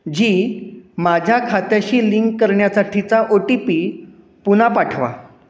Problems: constant background noise